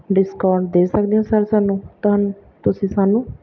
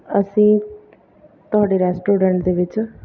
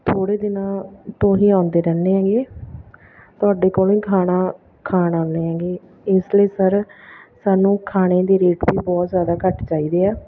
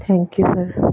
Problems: background sounds at intervals